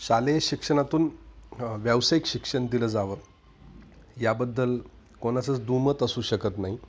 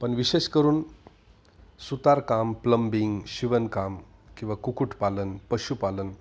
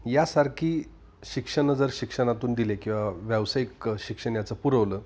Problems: none marked